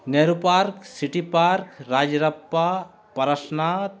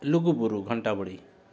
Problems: none marked